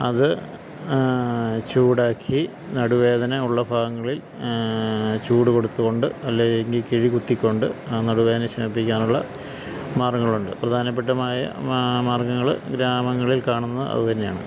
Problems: constant background noise, low volume